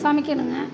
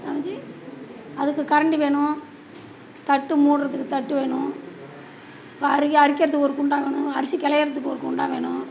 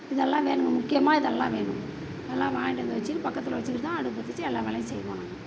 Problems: none marked